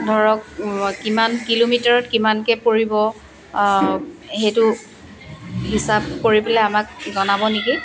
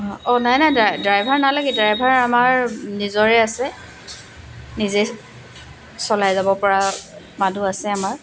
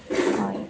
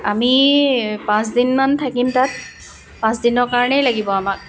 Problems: constant background noise, continuous background conversations